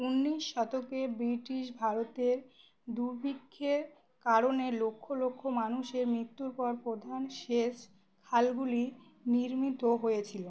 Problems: none marked